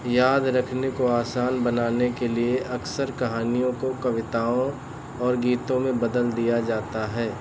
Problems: none marked